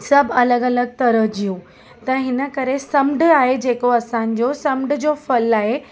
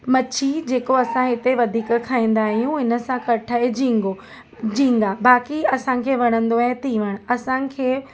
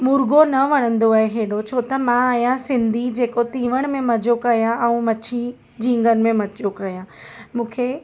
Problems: constant background noise